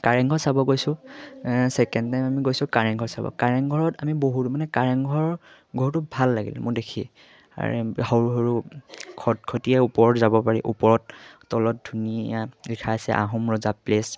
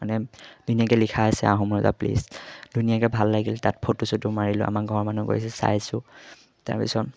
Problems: none marked